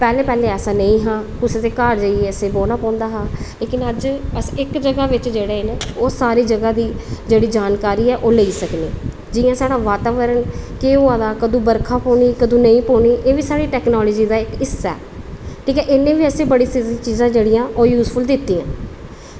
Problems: constant background noise